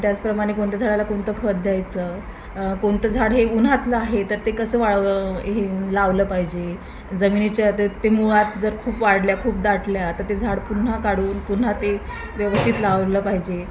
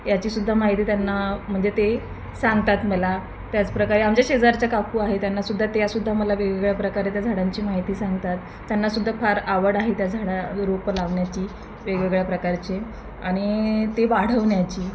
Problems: constant background noise, background conversations at intervals